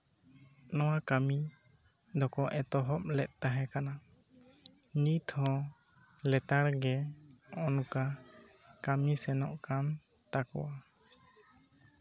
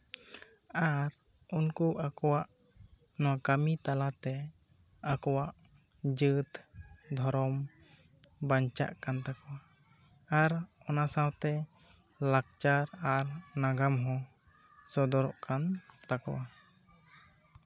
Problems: background conversations at intervals